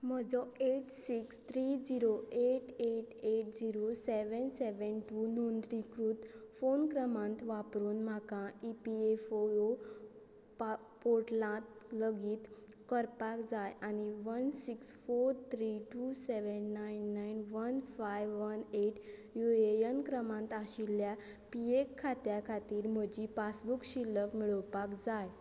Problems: none marked